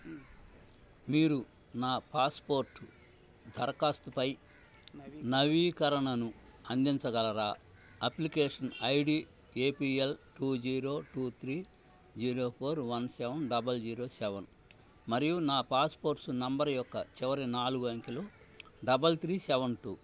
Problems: constant background noise, low volume